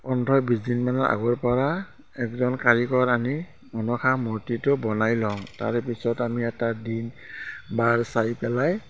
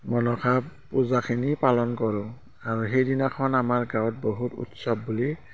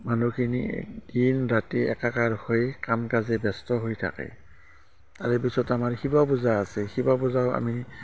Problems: constant background noise, continuous background conversations